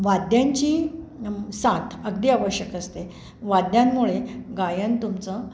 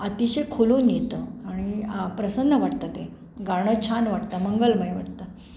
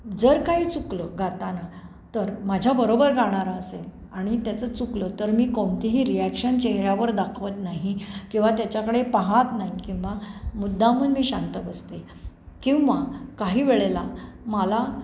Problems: background sounds at intervals